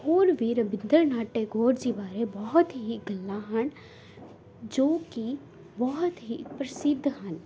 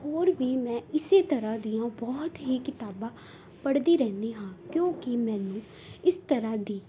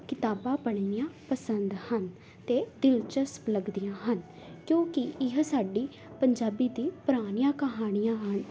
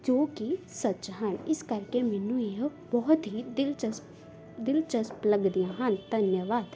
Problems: background sounds at intervals